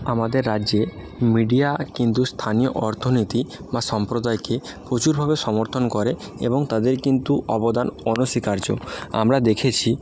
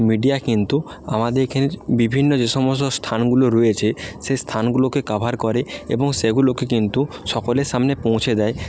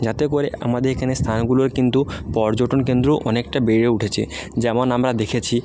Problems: none marked